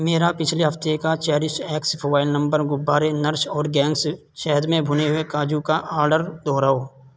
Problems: constant background noise